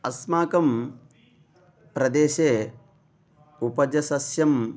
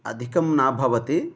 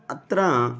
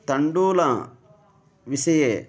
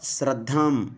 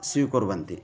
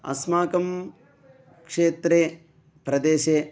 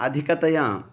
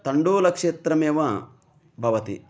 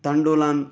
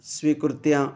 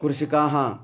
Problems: background sounds at intervals